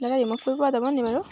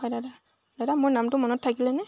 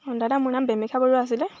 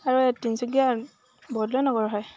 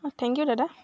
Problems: none marked